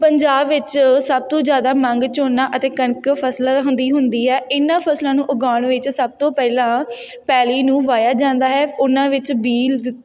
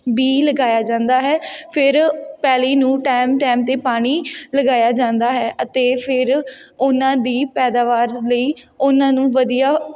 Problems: background sounds at intervals, background conversations at intervals